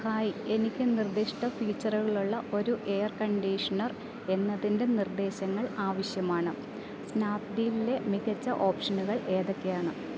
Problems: none marked